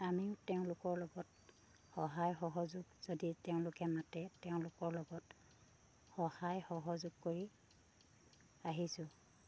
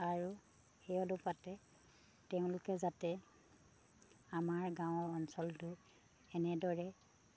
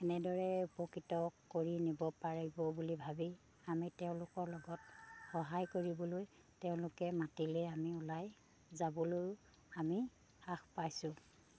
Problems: low volume